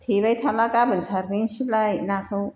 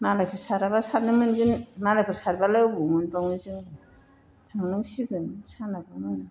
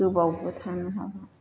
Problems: background sounds at intervals